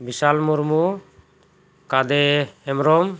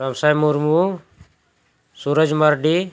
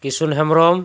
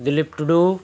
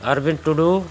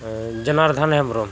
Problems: constant background noise